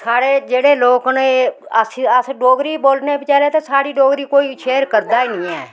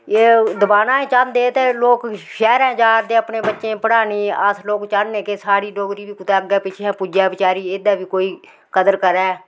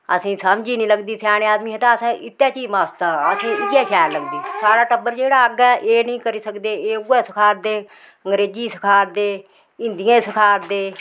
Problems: constant background noise, background conversations at intervals